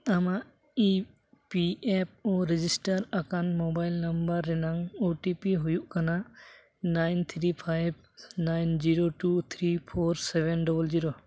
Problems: none marked